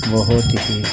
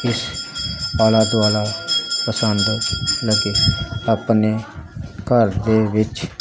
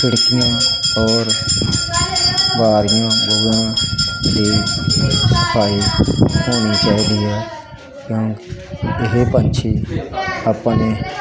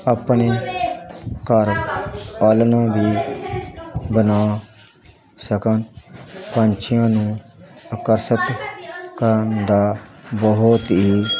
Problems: constant background noise, continuous background conversations